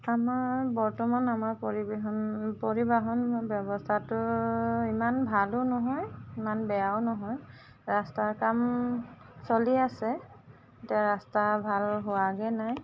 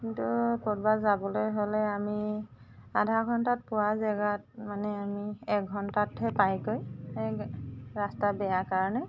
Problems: constant background noise